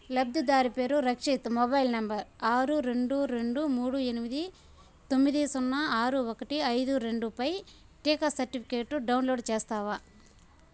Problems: constant background noise